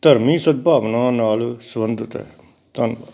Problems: none marked